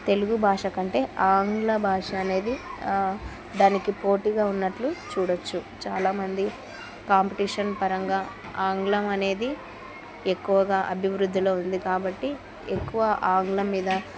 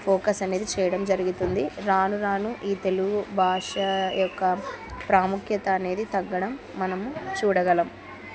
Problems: continuous background conversations